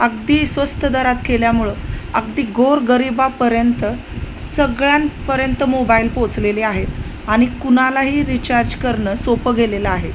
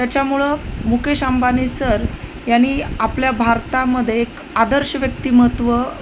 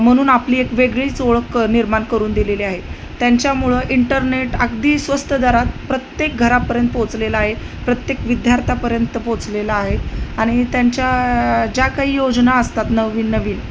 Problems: constant background noise